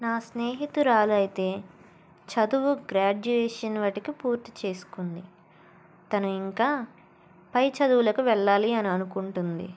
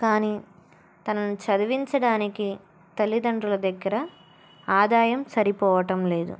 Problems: none marked